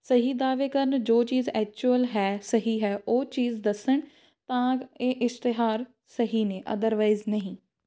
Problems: background sounds at intervals